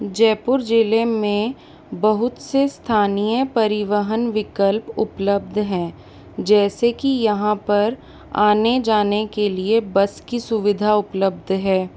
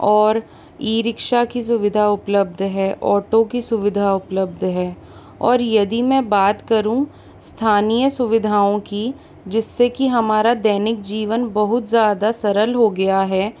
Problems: constant background noise